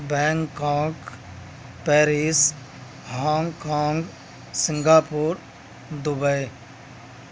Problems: none marked